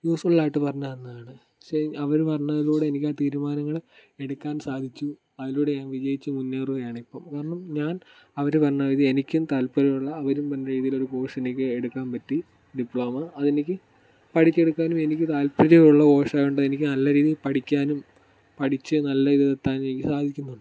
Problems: background sounds at intervals